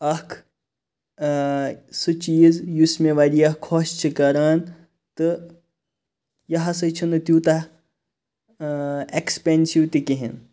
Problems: none marked